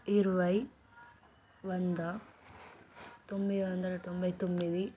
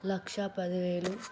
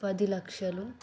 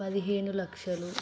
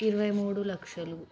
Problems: background sounds at intervals